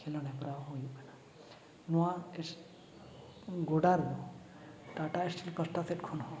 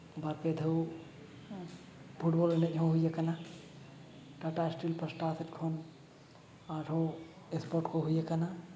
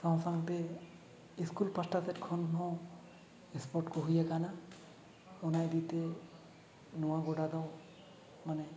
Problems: none marked